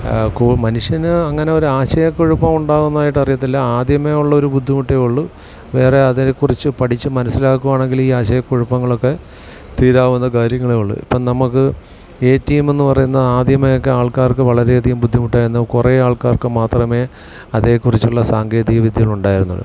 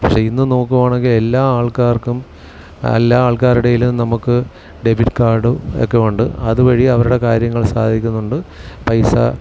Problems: none marked